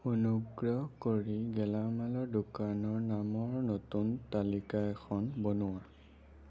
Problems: low volume